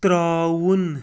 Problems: constant background noise